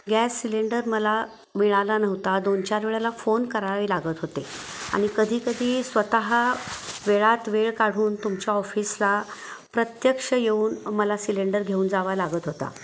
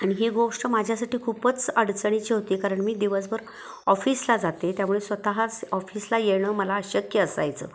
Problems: none marked